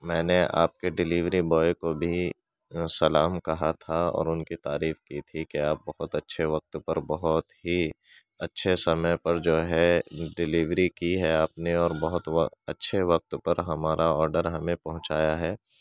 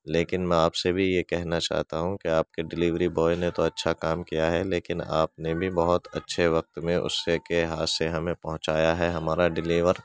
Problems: none marked